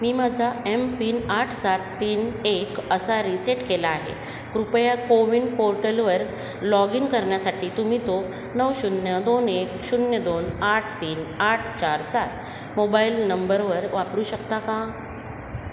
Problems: constant background noise, echo